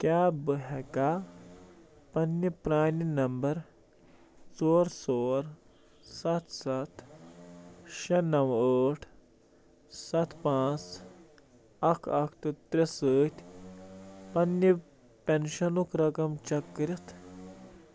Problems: background sounds at intervals